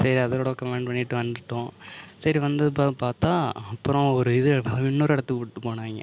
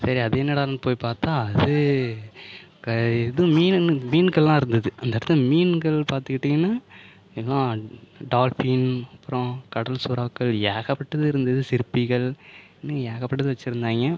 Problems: none marked